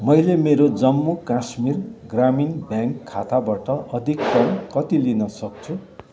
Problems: constant background noise